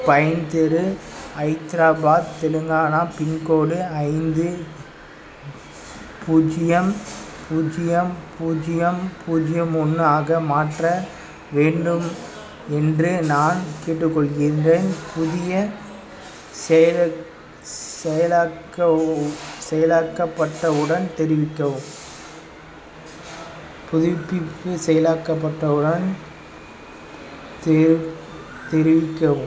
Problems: constant background noise